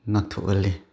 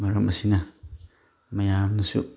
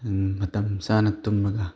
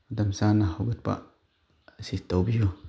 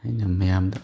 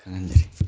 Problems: none marked